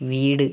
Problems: constant background noise